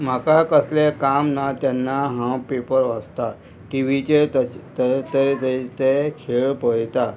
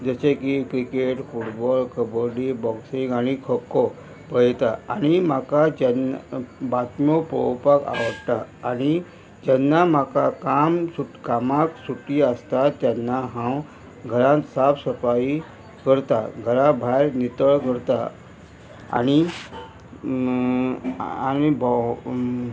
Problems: constant background noise